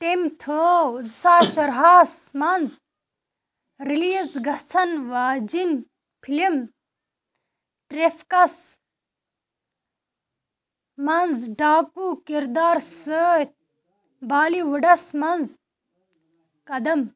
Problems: none marked